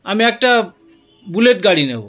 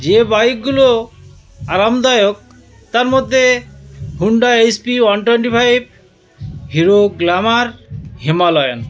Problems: constant background noise, continuous background conversations